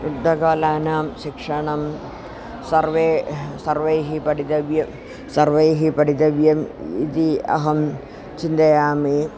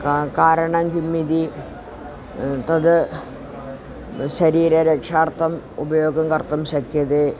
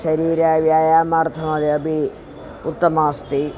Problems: constant background noise